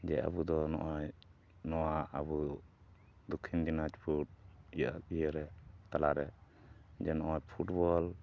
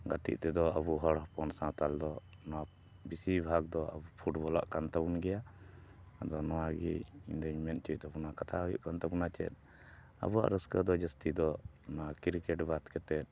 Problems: none marked